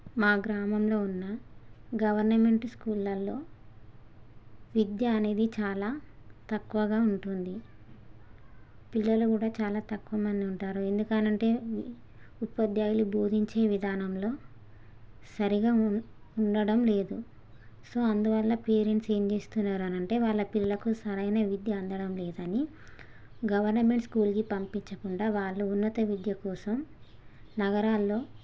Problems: none marked